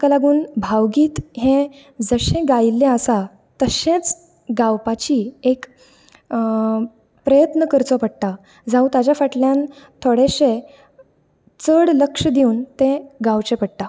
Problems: none marked